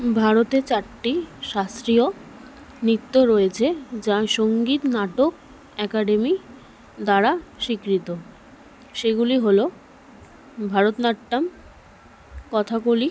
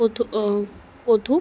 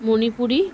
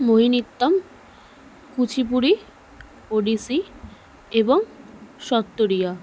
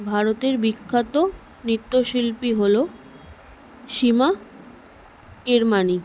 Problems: none marked